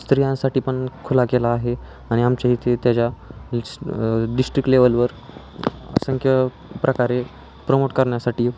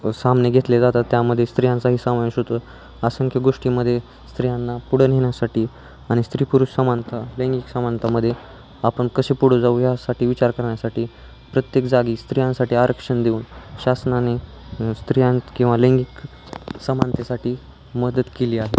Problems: none marked